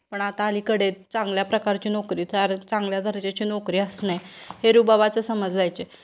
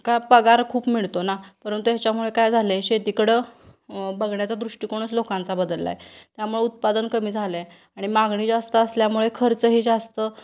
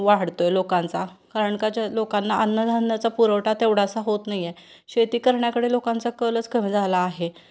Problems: constant background noise, background conversations at intervals